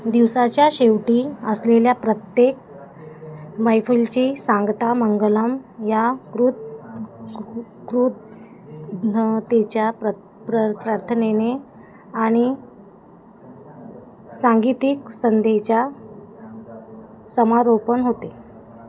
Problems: constant background noise, background conversations at intervals